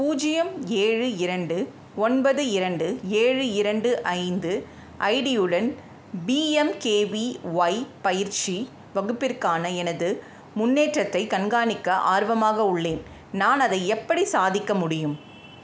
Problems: background sounds at intervals